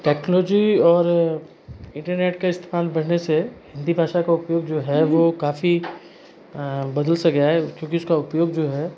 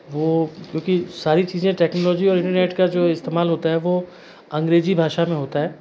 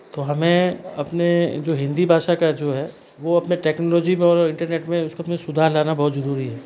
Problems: constant background noise